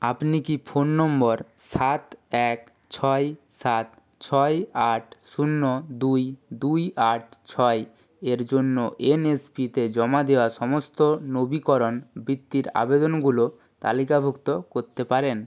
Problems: none marked